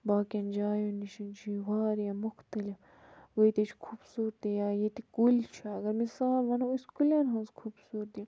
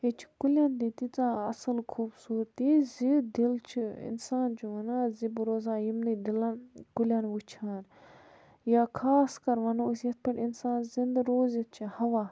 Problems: background sounds at intervals, low volume